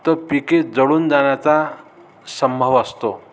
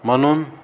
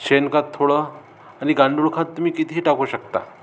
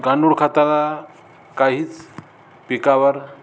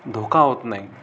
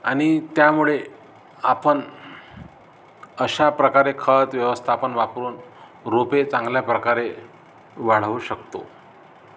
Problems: none marked